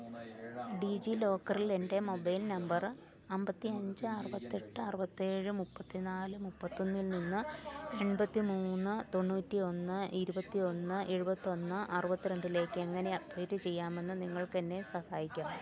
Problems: low volume